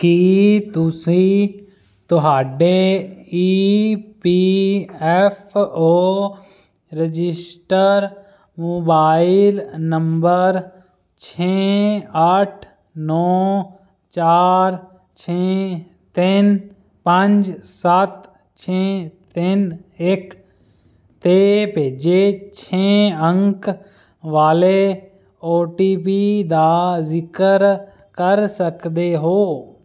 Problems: constant background noise